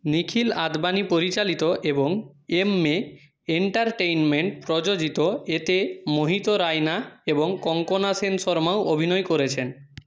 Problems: none marked